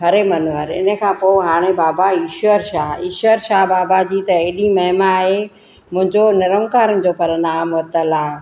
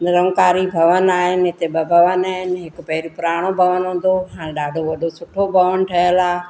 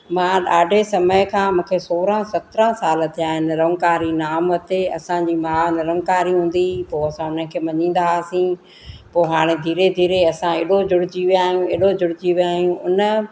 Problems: constant background noise